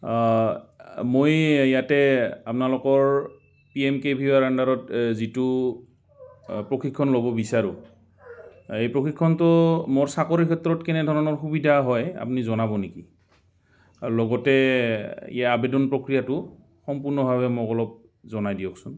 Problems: background sounds at intervals